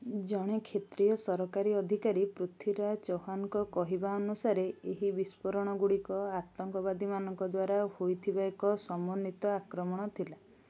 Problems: none marked